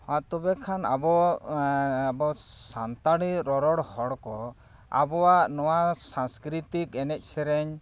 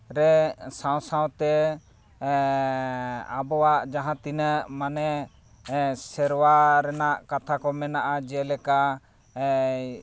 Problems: none marked